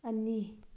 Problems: none marked